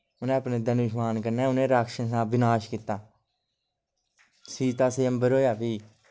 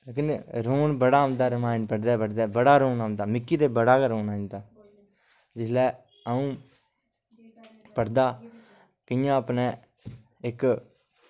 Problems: low volume